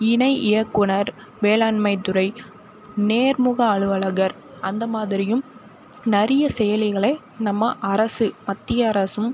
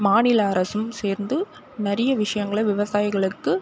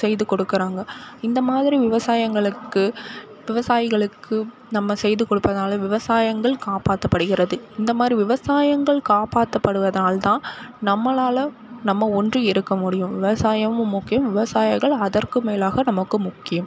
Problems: constant background noise